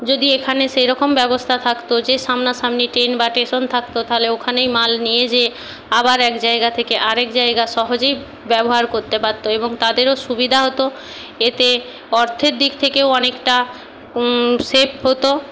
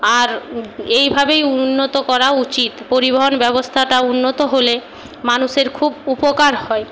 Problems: constant background noise